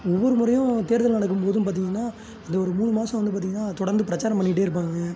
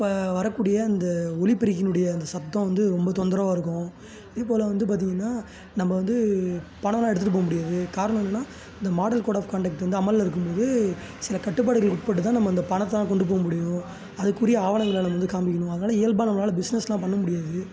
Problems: background sounds at intervals, continuous background conversations